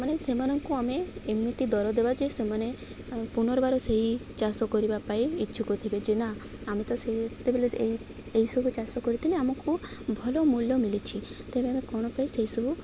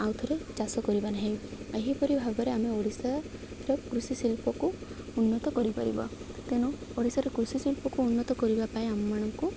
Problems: constant background noise